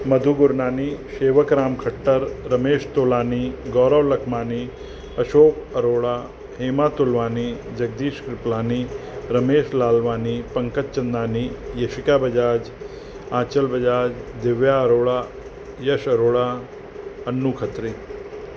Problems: constant background noise, echo